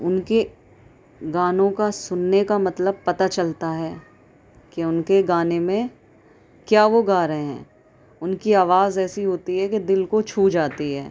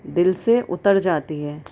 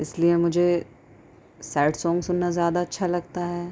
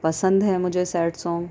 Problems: constant background noise, background conversations at intervals